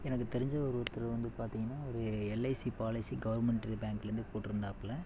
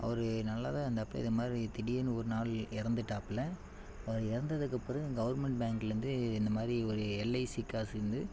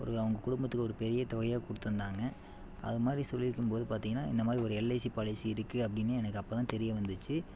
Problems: constant background noise